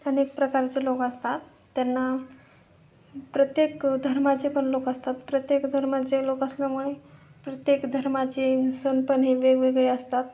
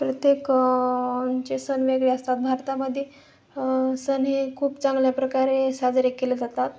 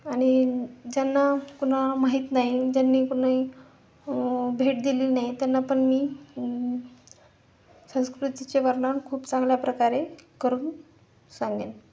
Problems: constant background noise, continuous background conversations